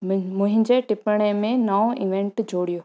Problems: none marked